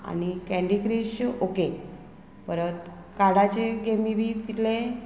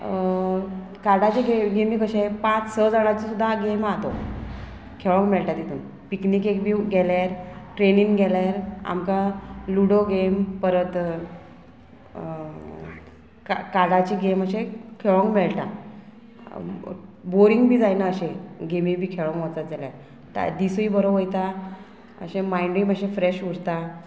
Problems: constant background noise